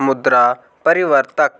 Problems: none marked